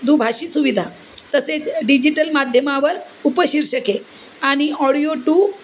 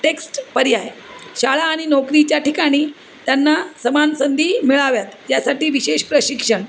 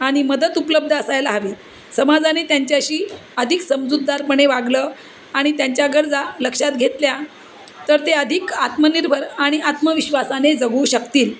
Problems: constant background noise